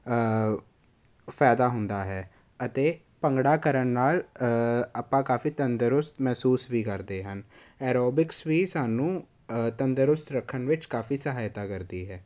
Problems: none marked